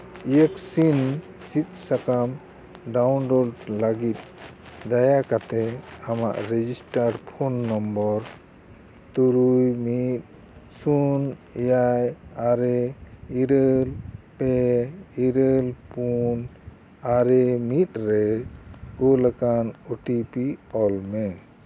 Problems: none marked